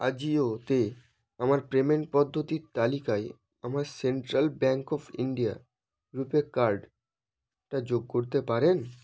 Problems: background sounds at intervals